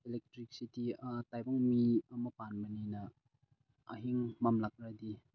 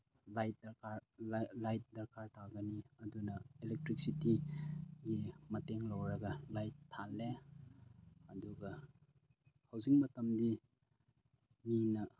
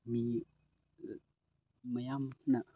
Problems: low volume